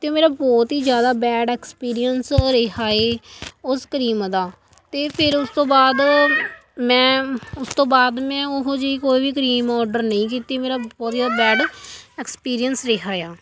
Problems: continuous background conversations